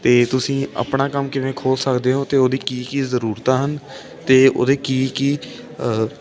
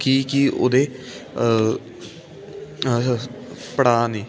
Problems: constant background noise